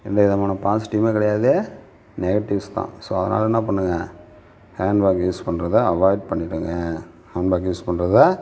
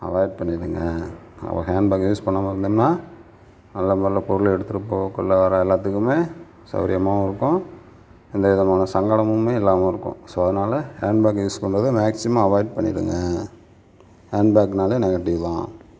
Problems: background sounds at intervals